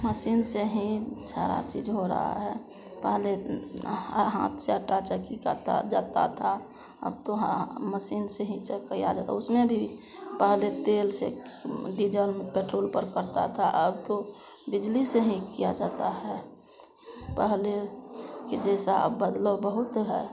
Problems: constant background noise, continuous background conversations